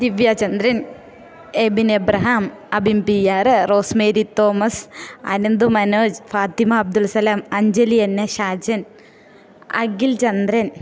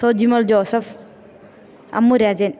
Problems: none marked